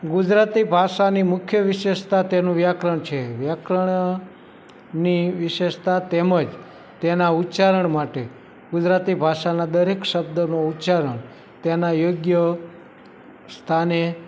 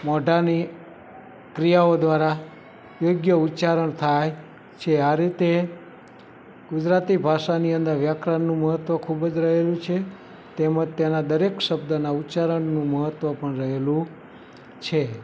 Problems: background conversations at intervals